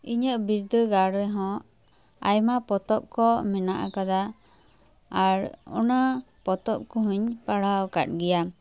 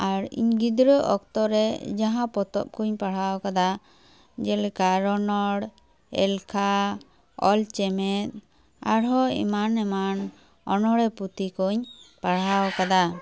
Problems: background sounds at intervals